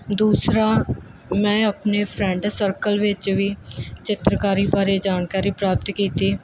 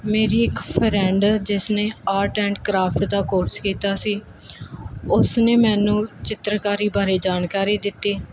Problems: none marked